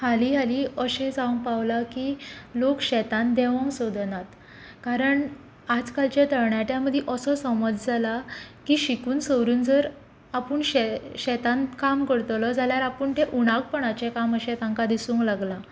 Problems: constant background noise